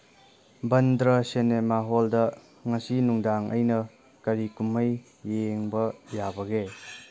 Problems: background sounds at intervals